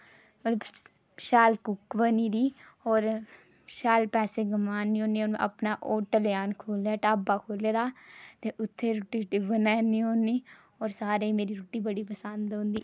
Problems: none marked